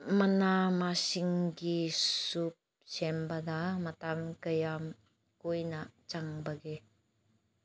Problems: none marked